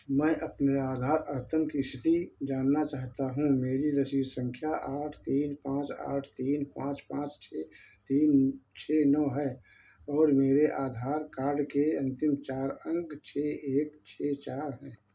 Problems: none marked